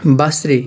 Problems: none marked